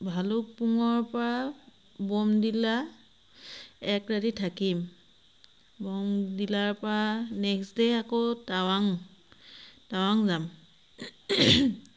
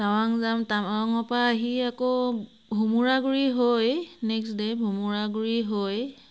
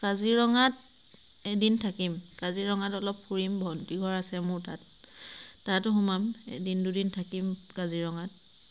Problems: constant background noise